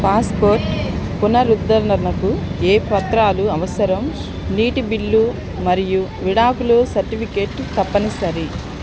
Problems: constant background noise